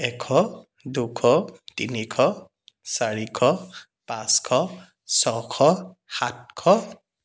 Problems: none marked